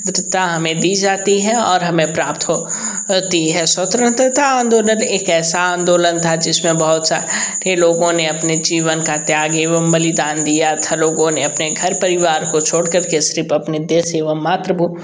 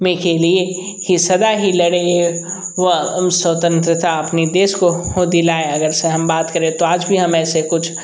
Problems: background sounds at intervals